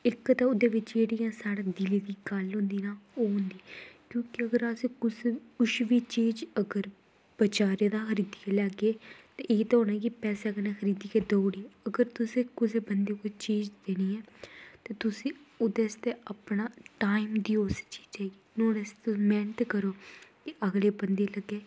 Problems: constant background noise